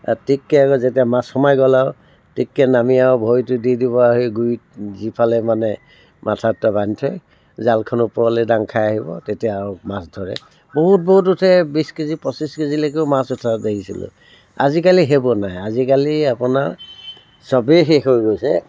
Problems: constant background noise